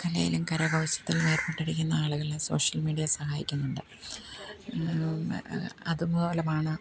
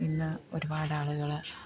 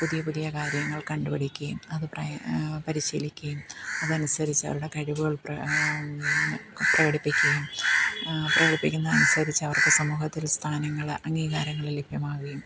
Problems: background sounds at intervals, low volume